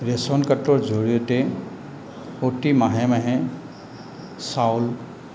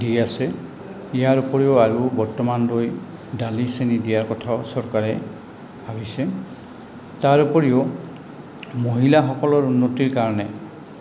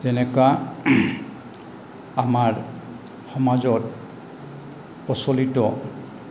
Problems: constant background noise, background conversations at intervals